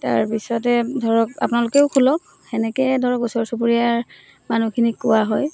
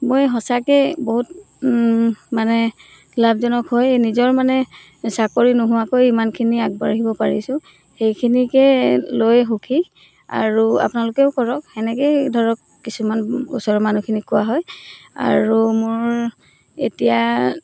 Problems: none marked